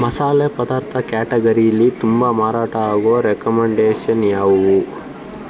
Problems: constant background noise